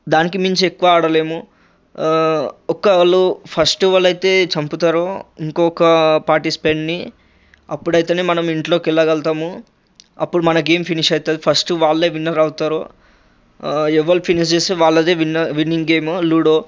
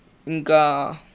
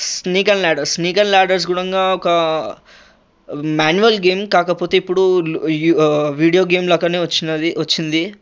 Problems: constant background noise